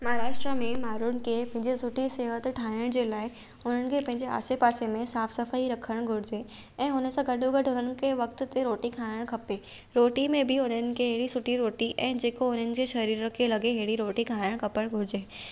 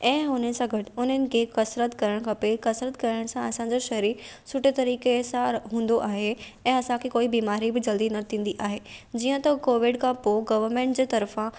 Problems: none marked